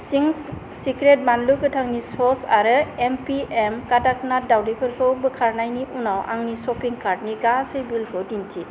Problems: constant background noise